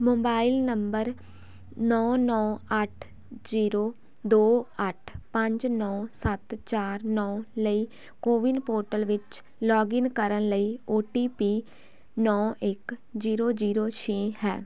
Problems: none marked